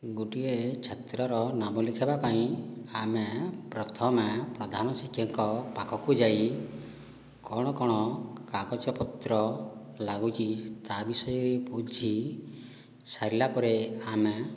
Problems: low volume